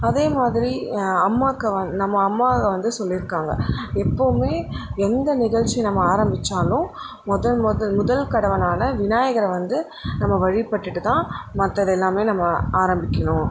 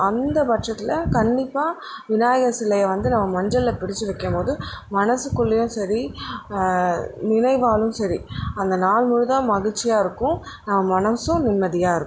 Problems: constant background noise